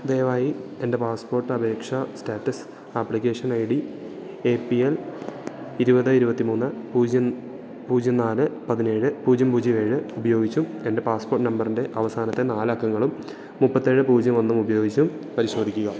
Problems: none marked